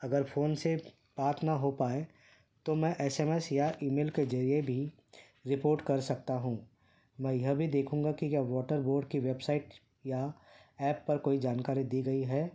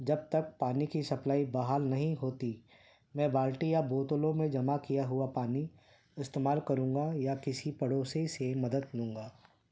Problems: none marked